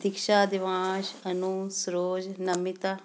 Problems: background sounds at intervals